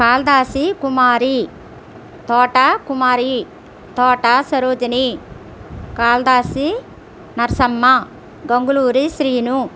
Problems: constant background noise